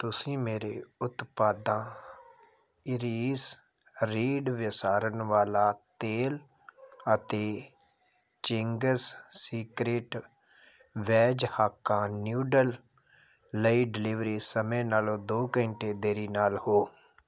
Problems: background sounds at intervals